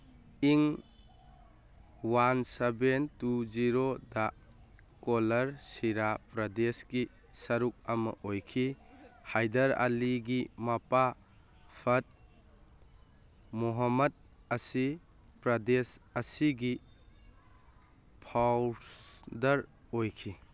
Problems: none marked